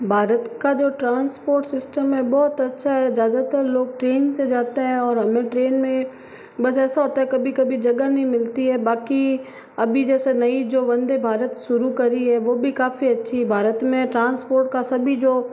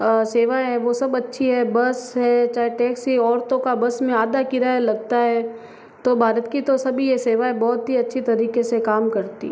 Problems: constant background noise